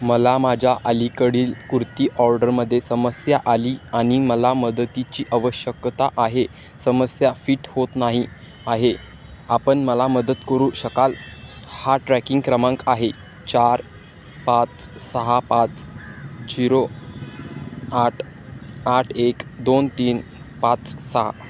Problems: constant background noise